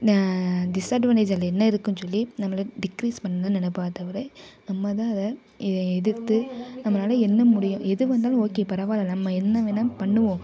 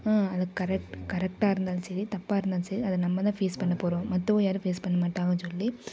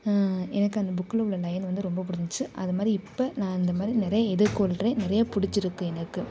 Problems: background sounds at intervals, background conversations at intervals